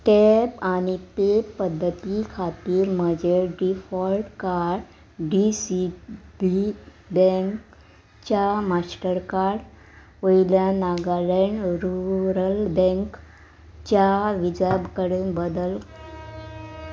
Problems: background sounds at intervals